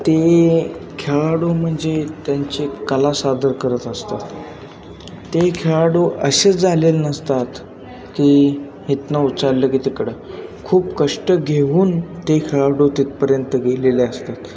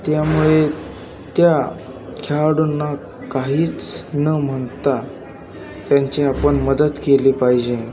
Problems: constant background noise, continuous background conversations